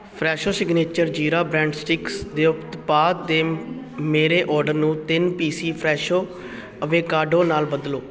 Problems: continuous background conversations